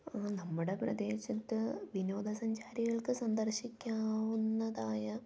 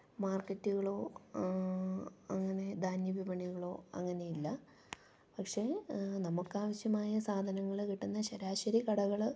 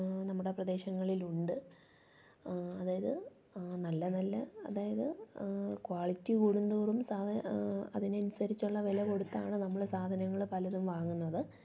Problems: low volume